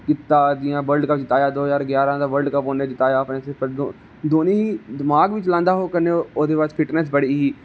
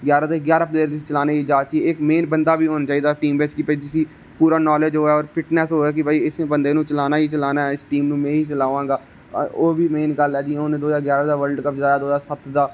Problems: none marked